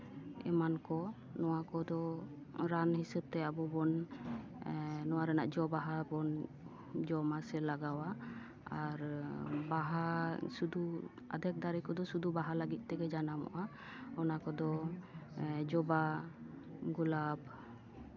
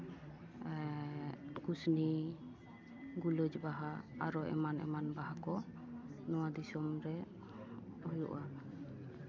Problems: background conversations at intervals